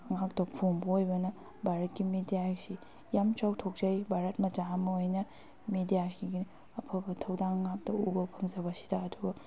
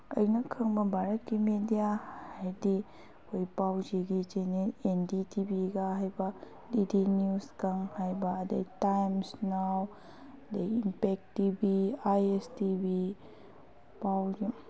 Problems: background conversations at intervals